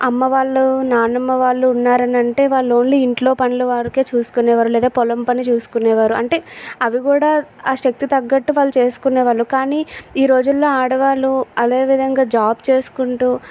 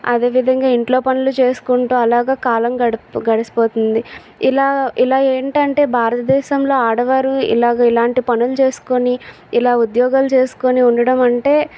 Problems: constant background noise